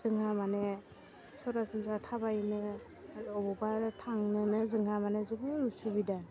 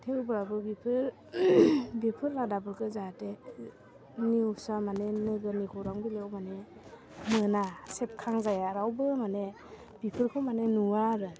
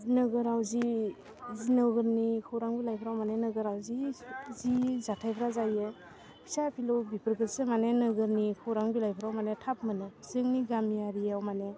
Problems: constant background noise